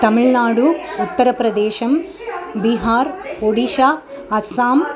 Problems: continuous background conversations